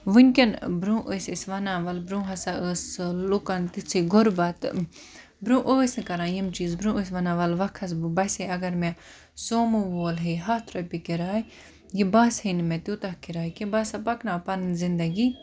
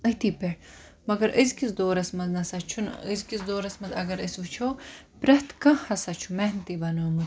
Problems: none marked